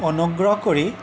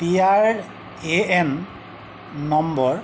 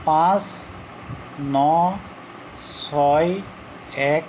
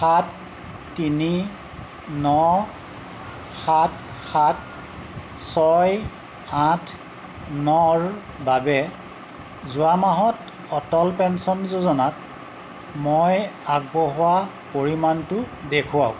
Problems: constant background noise